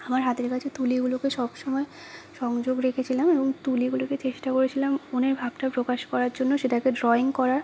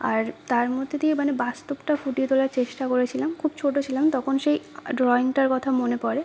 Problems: constant background noise, background conversations at intervals